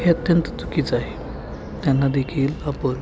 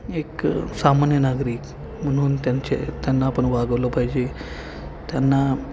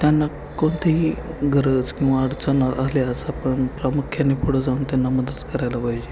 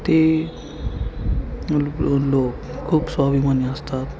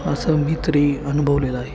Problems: constant background noise, continuous background conversations